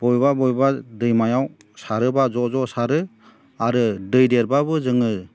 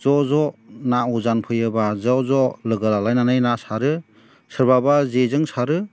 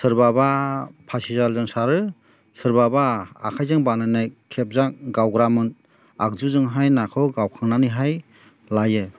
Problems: none marked